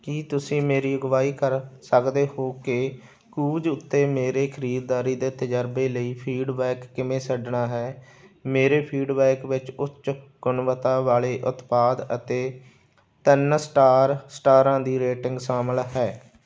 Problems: background sounds at intervals